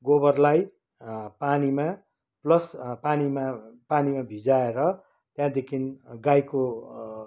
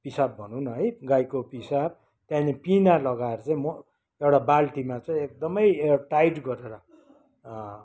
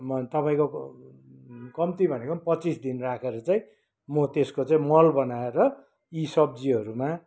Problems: none marked